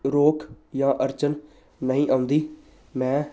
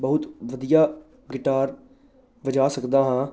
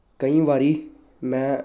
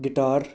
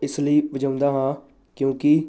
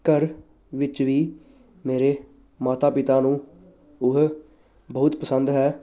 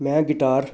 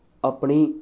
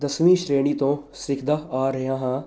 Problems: none marked